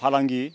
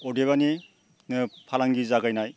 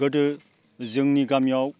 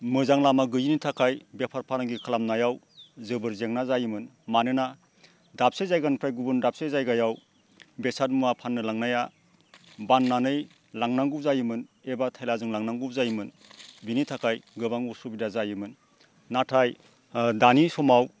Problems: low volume